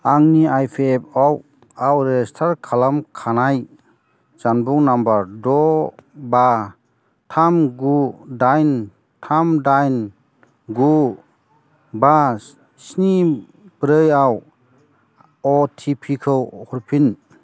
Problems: constant background noise